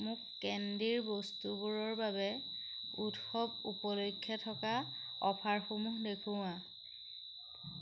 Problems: constant background noise